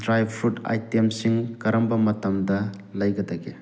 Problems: none marked